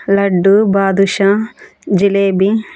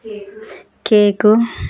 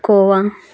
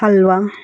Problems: background sounds at intervals, background conversations at intervals